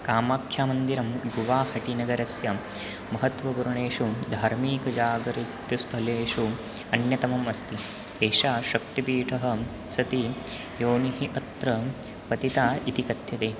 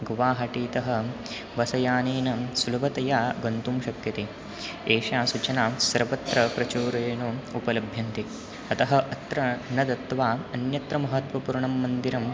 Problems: none marked